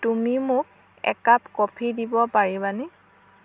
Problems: constant background noise